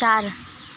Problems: constant background noise